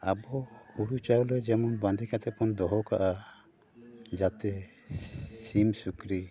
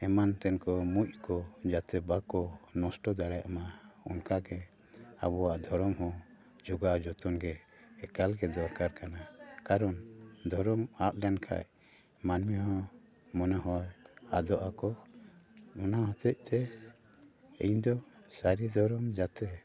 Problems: none marked